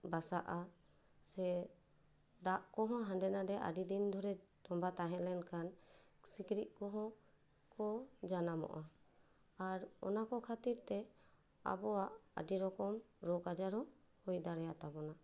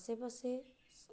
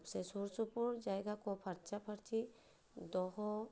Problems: none marked